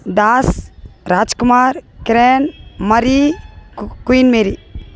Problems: constant background noise